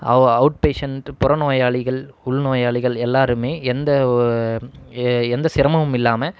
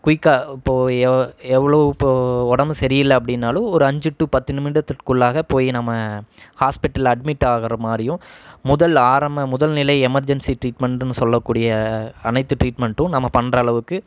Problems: none marked